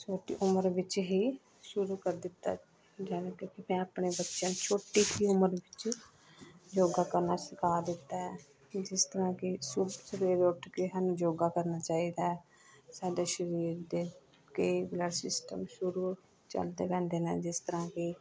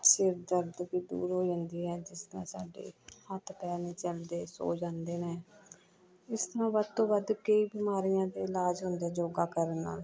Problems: constant background noise